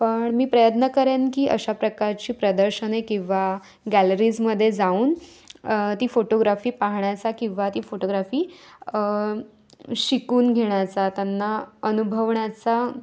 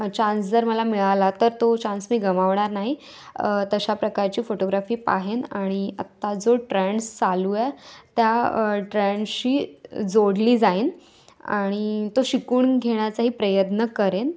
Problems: constant background noise